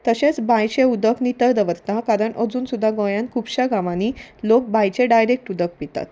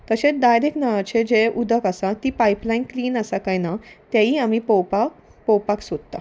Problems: none marked